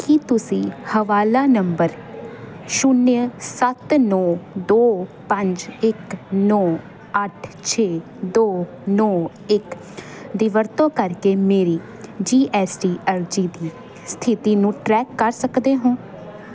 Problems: constant background noise